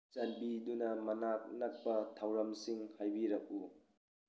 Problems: none marked